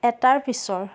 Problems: constant background noise